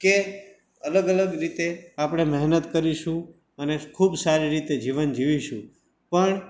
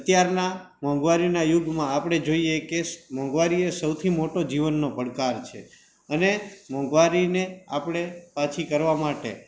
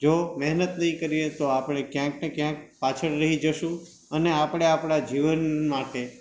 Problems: background sounds at intervals